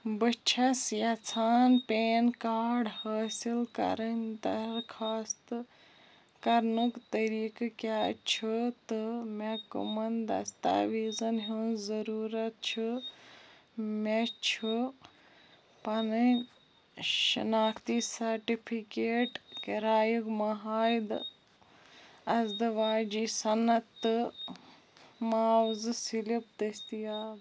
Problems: none marked